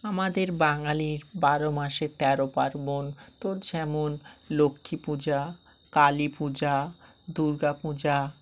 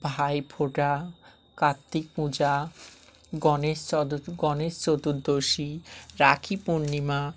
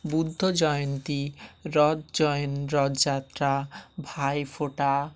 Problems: none marked